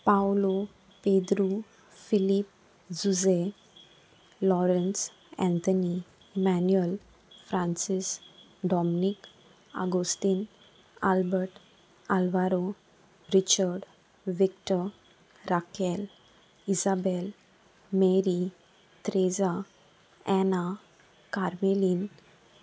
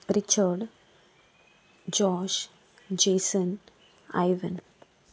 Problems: constant background noise